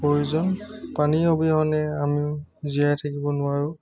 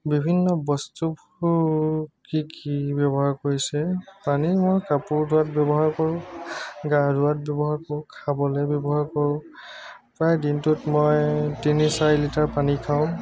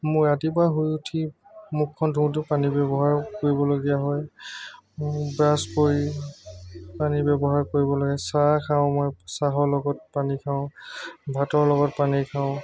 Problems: constant background noise, background conversations at intervals